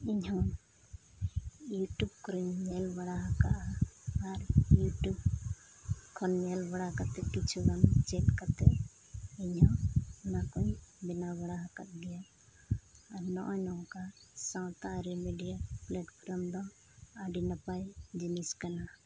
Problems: constant background noise